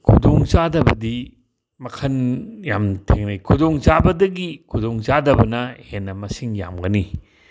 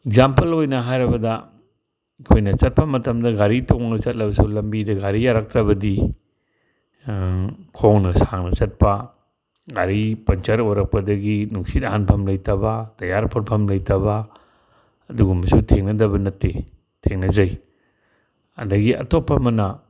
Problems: none marked